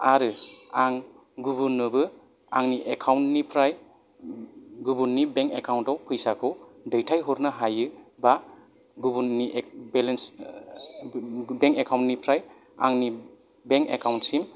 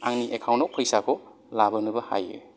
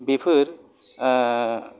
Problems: background sounds at intervals